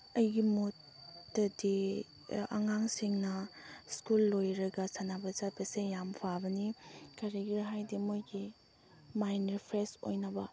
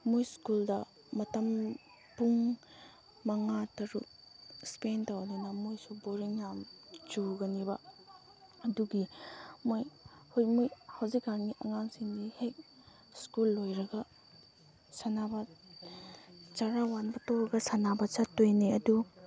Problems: background sounds at intervals, background conversations at intervals